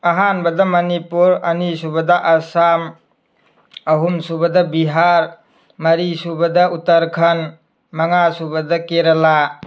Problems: none marked